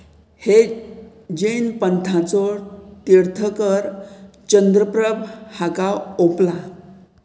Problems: none marked